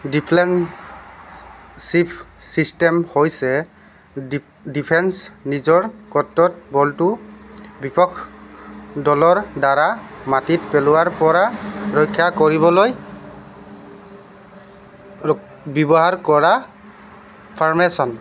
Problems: constant background noise